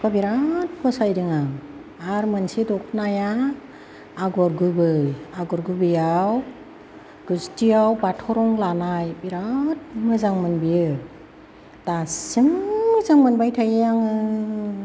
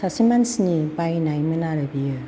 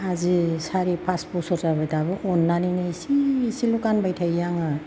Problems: constant background noise, background conversations at intervals